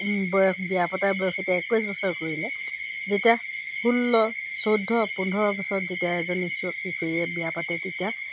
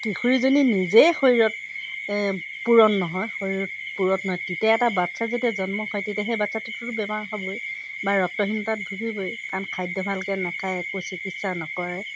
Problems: constant background noise